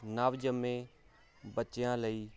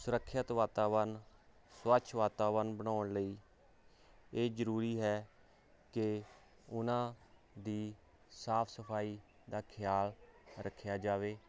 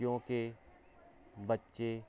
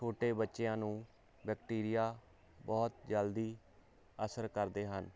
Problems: background sounds at intervals